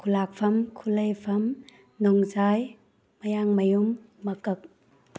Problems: none marked